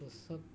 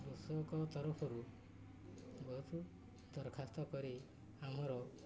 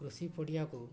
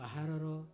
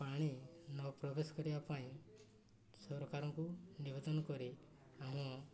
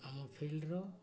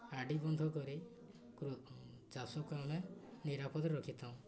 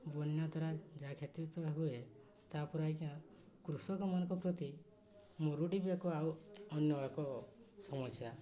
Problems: low volume